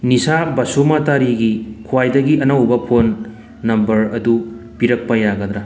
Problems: background sounds at intervals